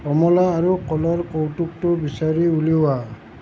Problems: constant background noise